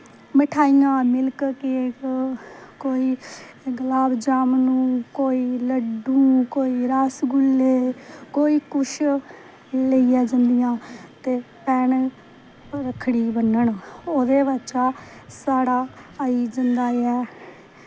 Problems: none marked